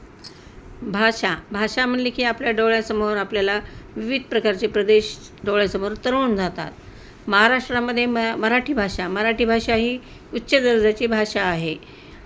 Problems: constant background noise